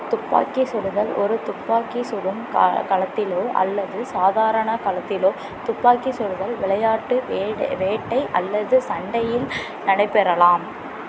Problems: constant background noise